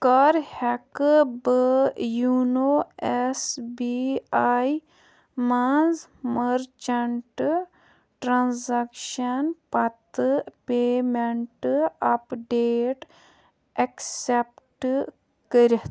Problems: none marked